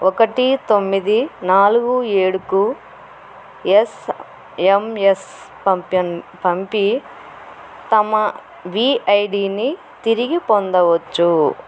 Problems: none marked